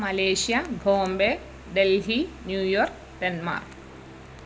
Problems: constant background noise